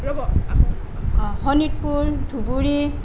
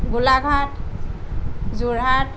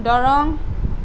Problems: none marked